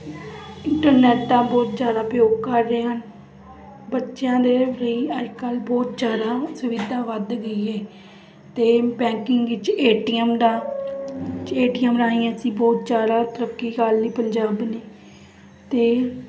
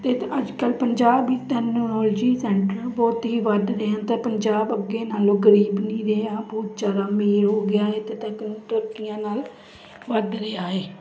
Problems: constant background noise